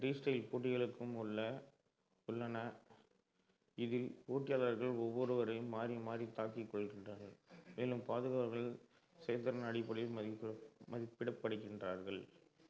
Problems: low volume